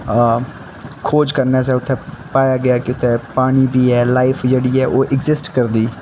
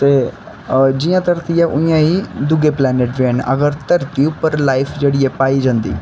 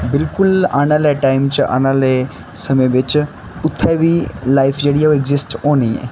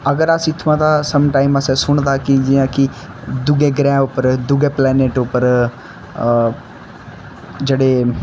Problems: constant background noise